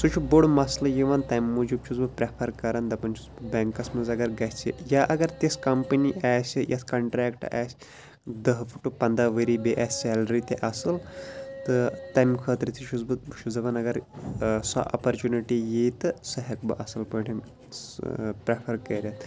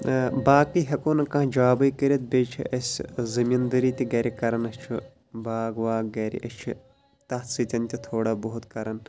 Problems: background sounds at intervals